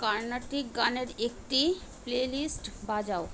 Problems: constant background noise